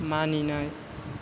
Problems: constant background noise